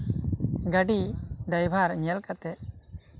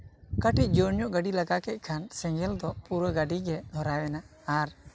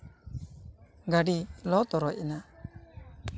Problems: none marked